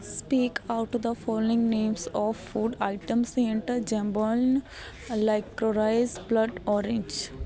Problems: none marked